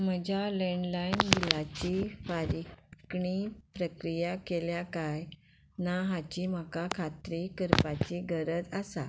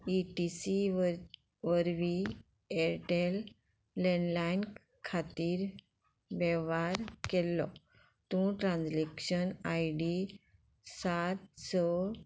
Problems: none marked